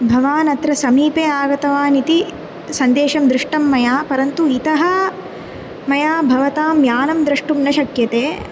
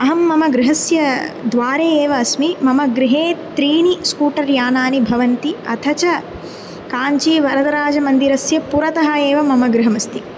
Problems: constant background noise